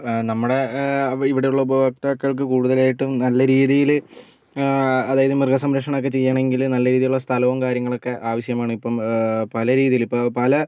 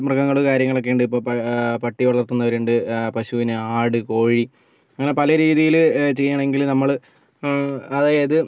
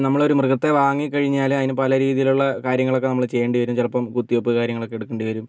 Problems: none marked